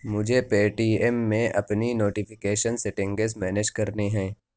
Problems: none marked